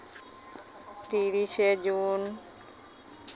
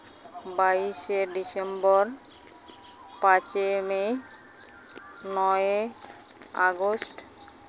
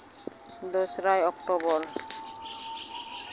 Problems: constant background noise